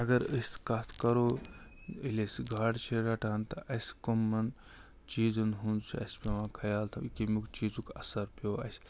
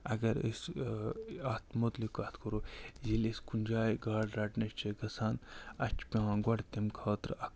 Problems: none marked